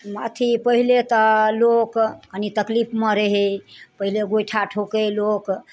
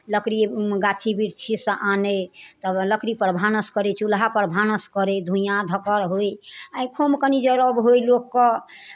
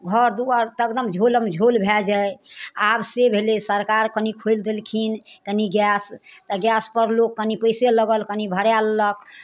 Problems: none marked